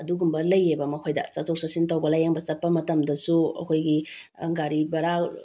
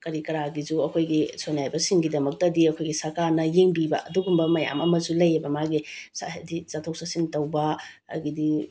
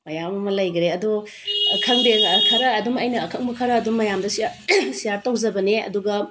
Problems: none marked